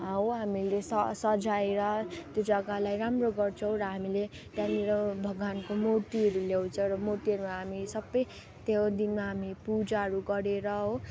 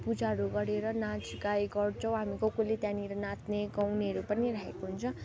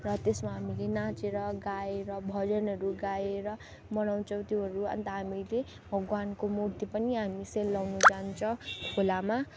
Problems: constant background noise